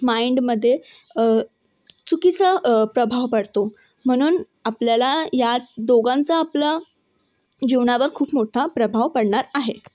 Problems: background sounds at intervals, background conversations at intervals